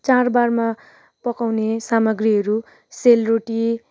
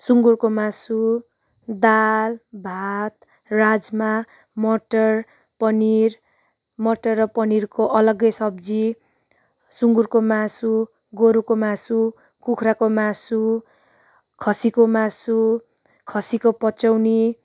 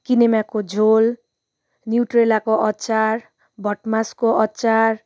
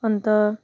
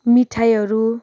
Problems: none marked